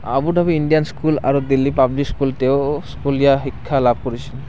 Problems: constant background noise